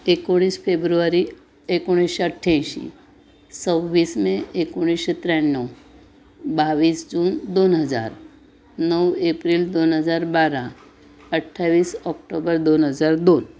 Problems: none marked